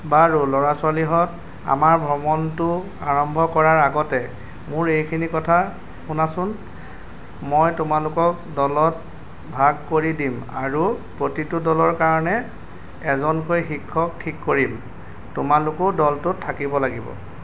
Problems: constant background noise